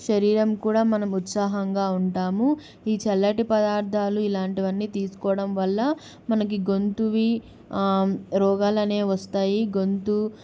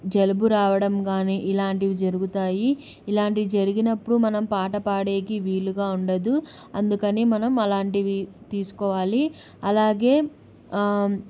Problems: none marked